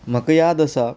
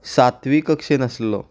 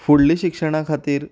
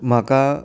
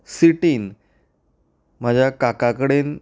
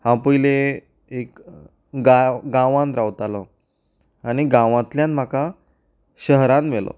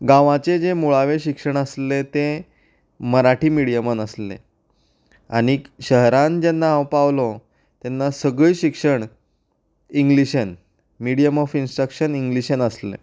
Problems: background sounds at intervals